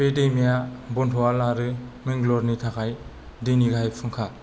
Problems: none marked